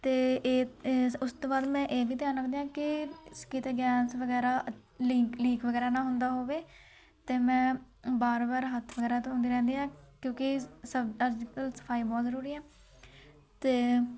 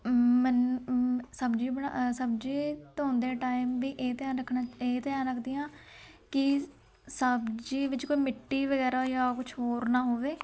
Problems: continuous background conversations